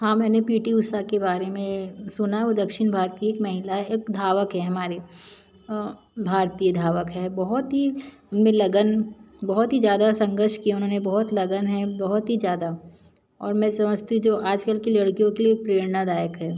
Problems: none marked